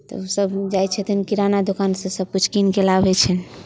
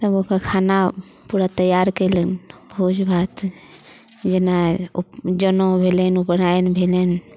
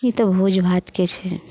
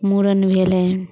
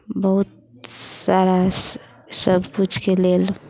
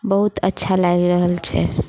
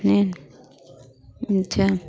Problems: none marked